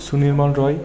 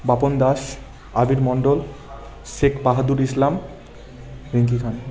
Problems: constant background noise, continuous background conversations